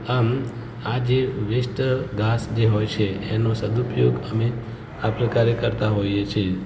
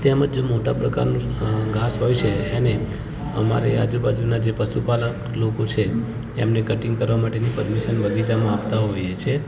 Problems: background sounds at intervals, continuous background conversations